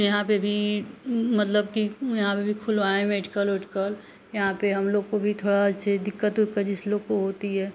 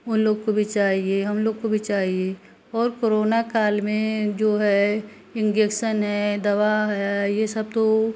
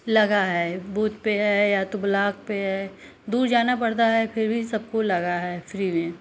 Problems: none marked